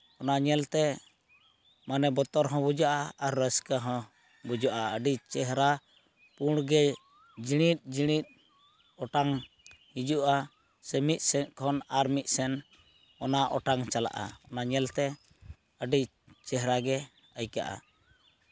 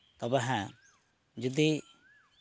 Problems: none marked